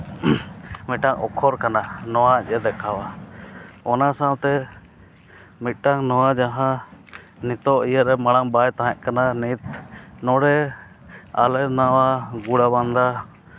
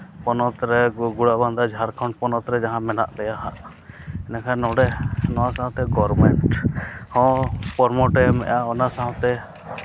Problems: none marked